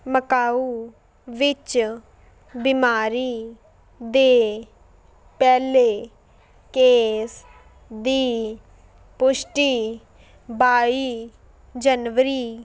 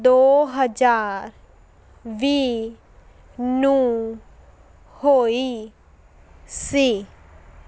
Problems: background sounds at intervals